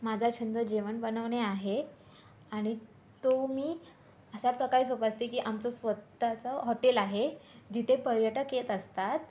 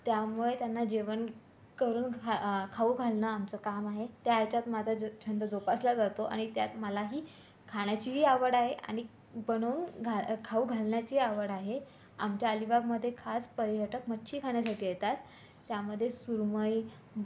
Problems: constant background noise, background conversations at intervals